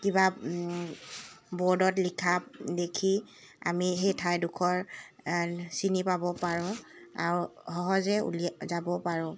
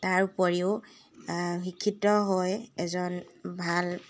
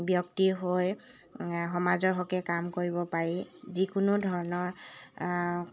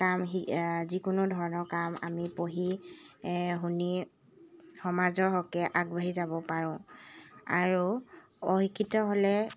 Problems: constant background noise, background conversations at intervals